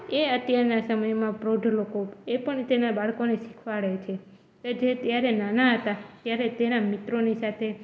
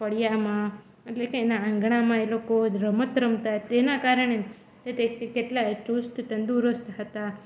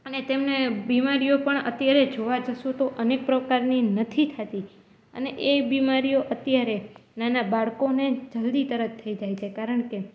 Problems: none marked